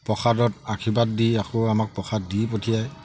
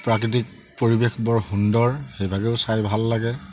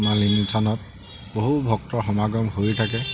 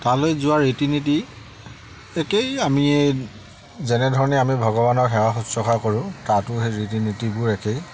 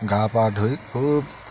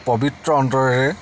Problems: none marked